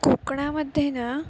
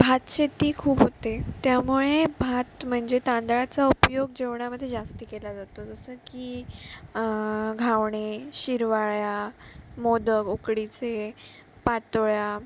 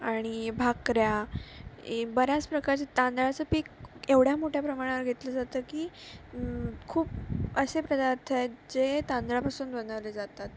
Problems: none marked